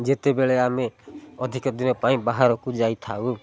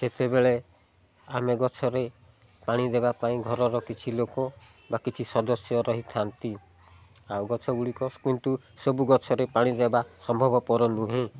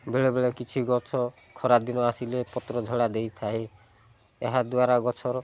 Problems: low volume